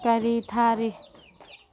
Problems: constant background noise